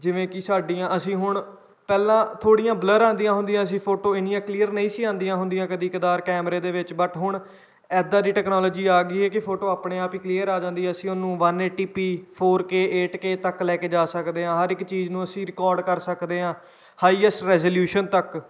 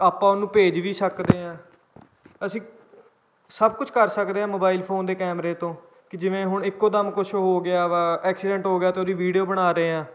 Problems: none marked